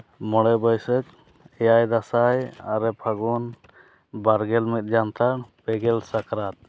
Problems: none marked